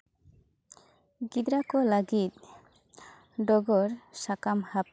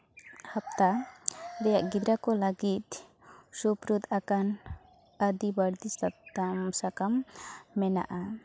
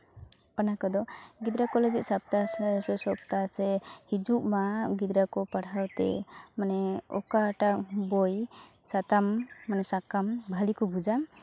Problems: constant background noise